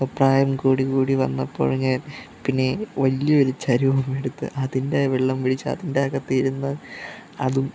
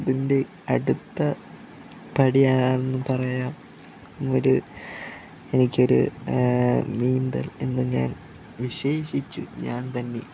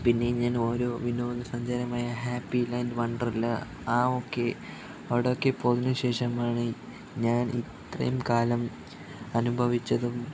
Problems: constant background noise, low volume